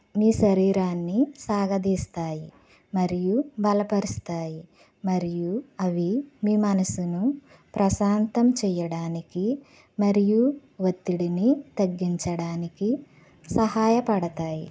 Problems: none marked